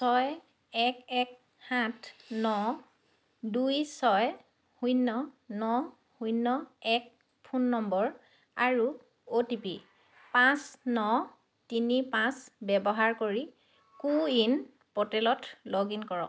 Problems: constant background noise